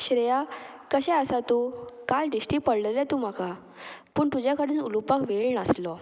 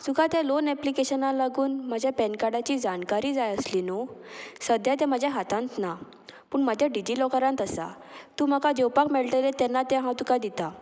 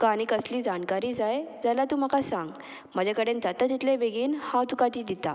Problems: background sounds at intervals